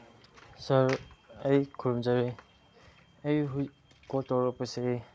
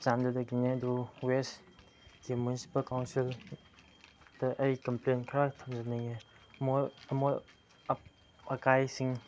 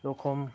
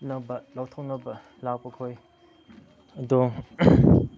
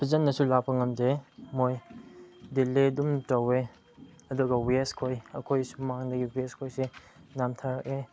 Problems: background sounds at intervals, low volume